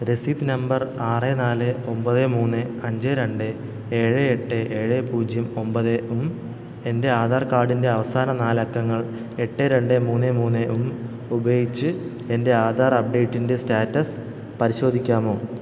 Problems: constant background noise